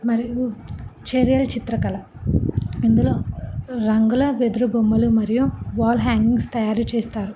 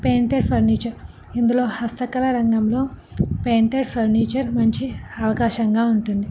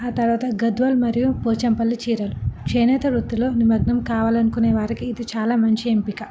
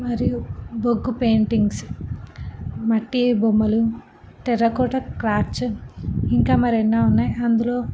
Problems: background sounds at intervals